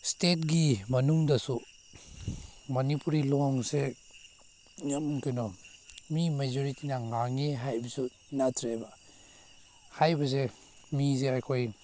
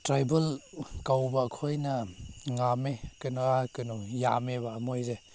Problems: none marked